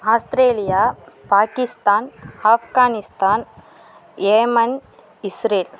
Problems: constant background noise